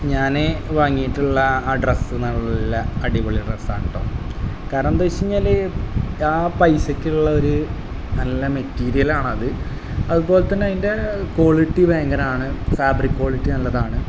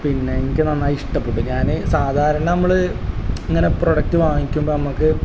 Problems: constant background noise, low volume